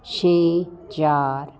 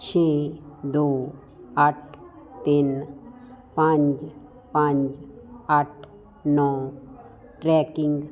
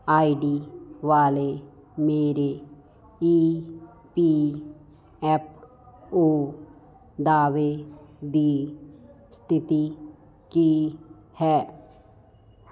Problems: constant background noise